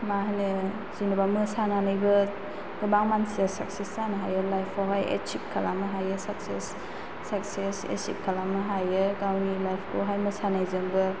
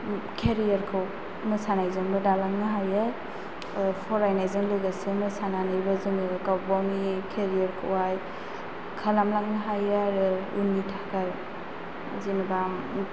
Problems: constant background noise